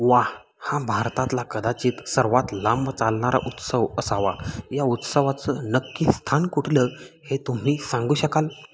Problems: none marked